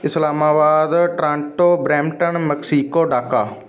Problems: none marked